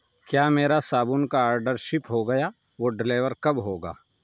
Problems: none marked